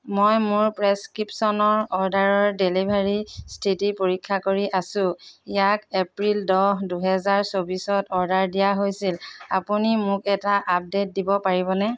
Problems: background sounds at intervals